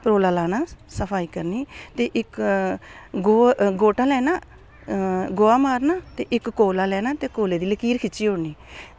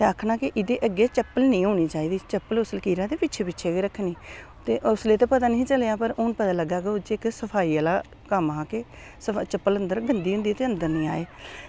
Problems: constant background noise